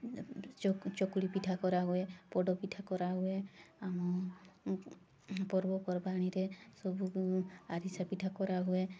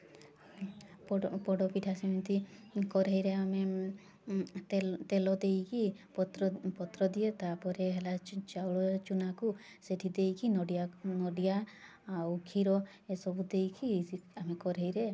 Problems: constant background noise